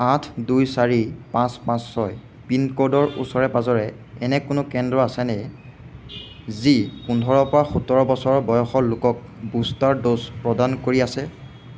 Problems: none marked